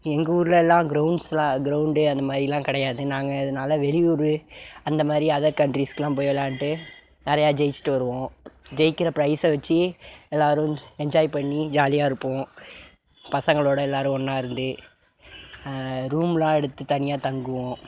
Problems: background sounds at intervals